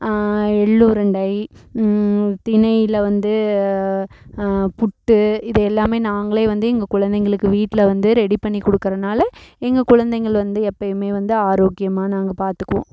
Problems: none marked